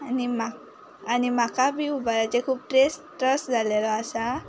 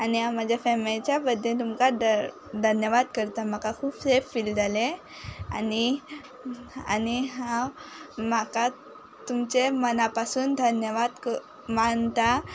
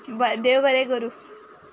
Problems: constant background noise